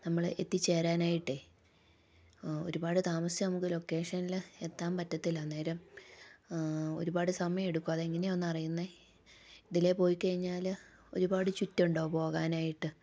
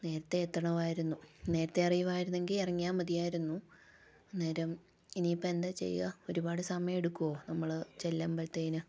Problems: low volume